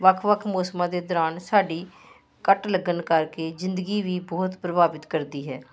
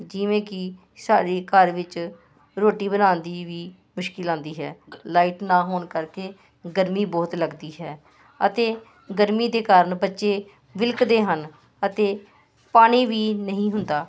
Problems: constant background noise